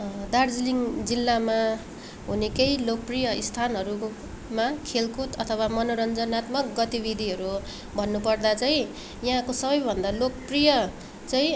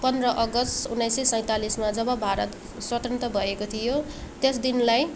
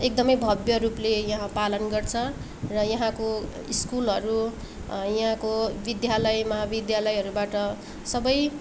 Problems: none marked